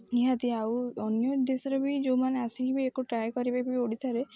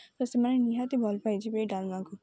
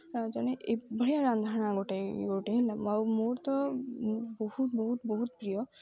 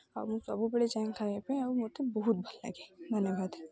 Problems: none marked